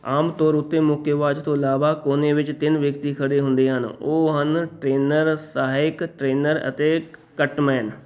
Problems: background sounds at intervals